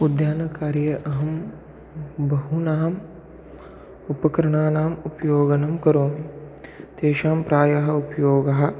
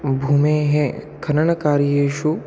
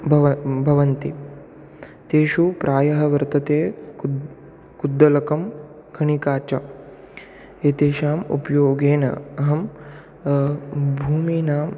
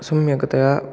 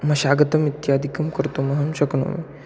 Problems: background sounds at intervals